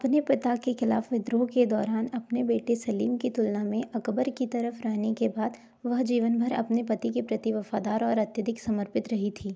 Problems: none marked